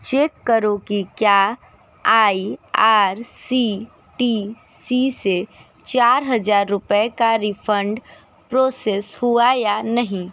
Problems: none marked